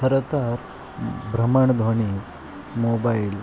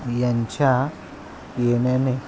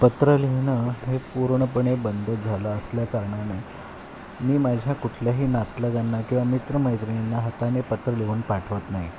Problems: constant background noise